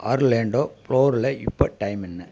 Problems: none marked